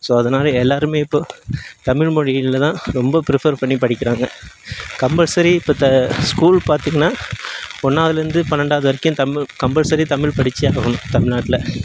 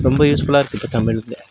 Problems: background sounds at intervals